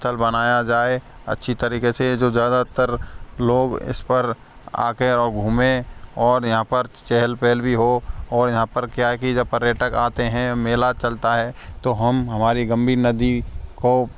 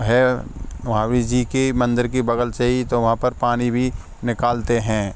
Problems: none marked